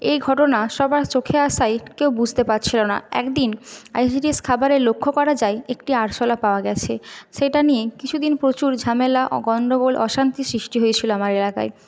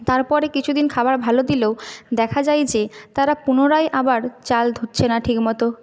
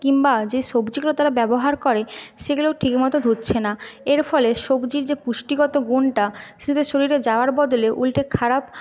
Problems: none marked